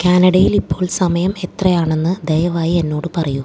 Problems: low volume